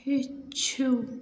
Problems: constant background noise